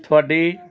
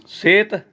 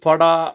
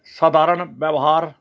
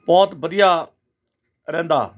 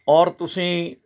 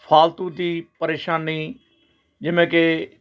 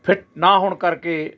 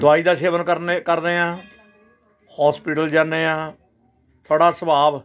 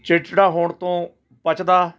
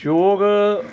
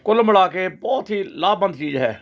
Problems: constant background noise